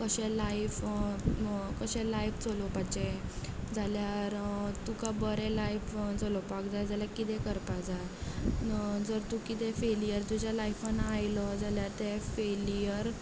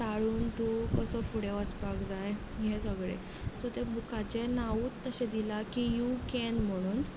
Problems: none marked